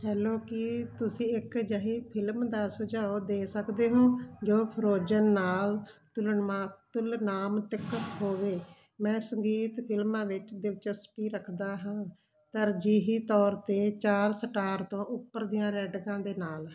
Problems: none marked